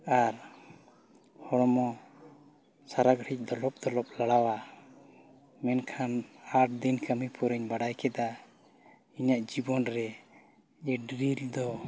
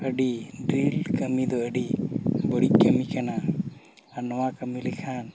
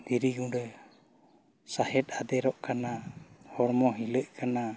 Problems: background sounds at intervals